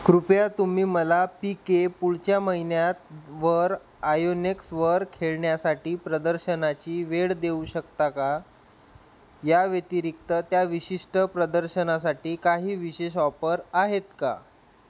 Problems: constant background noise